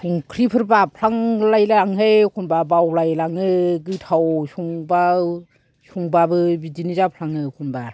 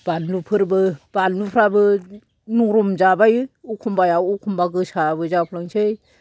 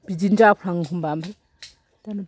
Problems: low volume